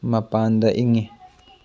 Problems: none marked